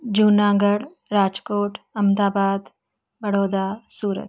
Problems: background sounds at intervals